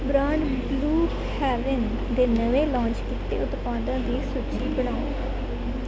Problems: constant background noise